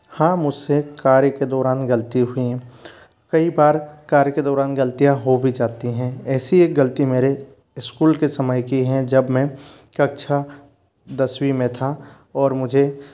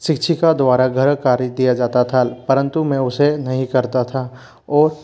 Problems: constant background noise